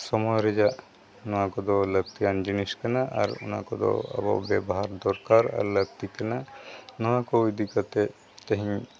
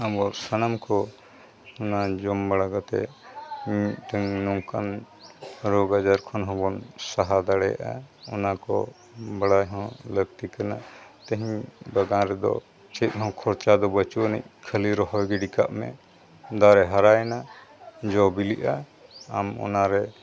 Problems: background sounds at intervals, continuous background conversations